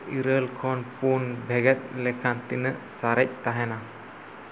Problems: constant background noise